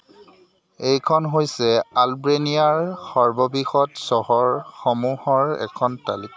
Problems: constant background noise, continuous background conversations